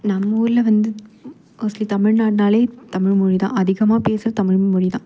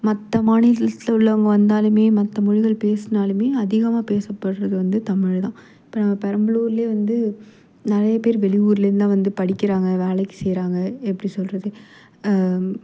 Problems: none marked